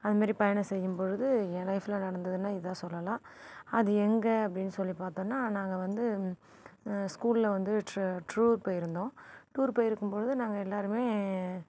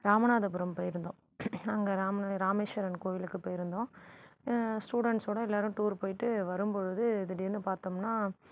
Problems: background sounds at intervals